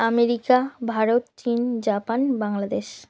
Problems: none marked